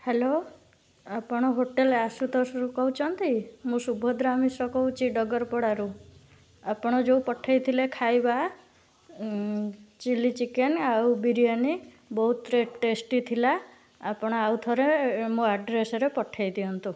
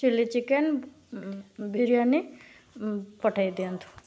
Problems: background sounds at intervals